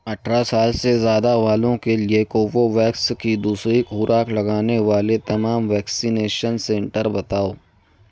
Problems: background sounds at intervals